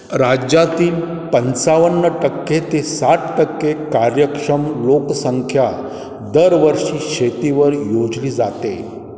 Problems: background sounds at intervals